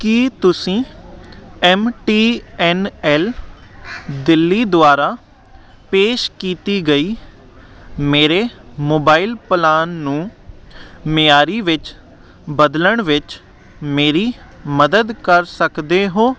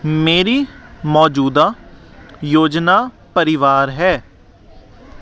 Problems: none marked